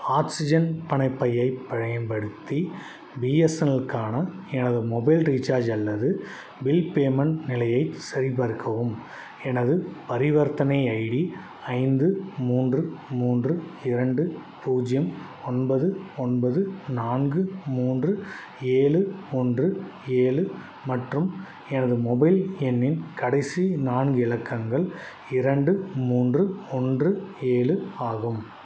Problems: none marked